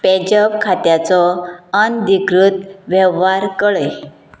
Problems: background sounds at intervals